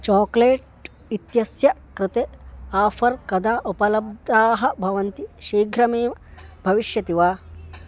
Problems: constant background noise